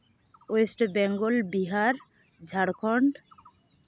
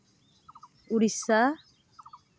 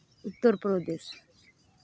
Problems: none marked